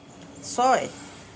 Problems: constant background noise